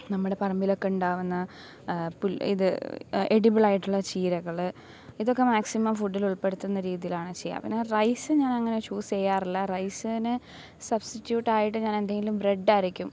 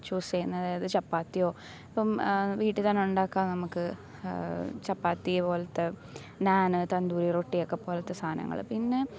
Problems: none marked